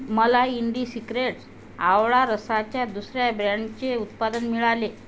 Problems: constant background noise